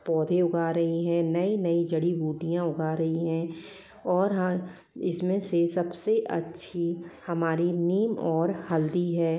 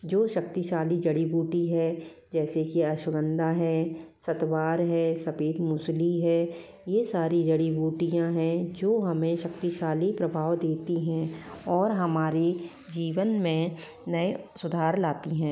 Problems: continuous background conversations